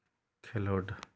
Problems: none marked